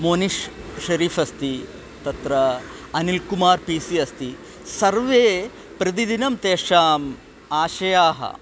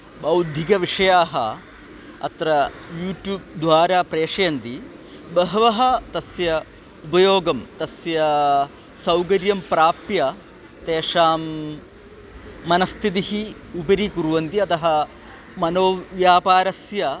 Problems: constant background noise